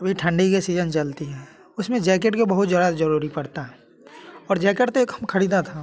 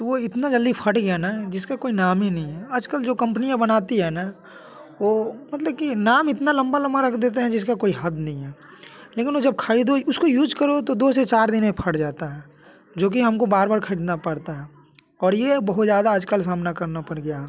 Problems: constant background noise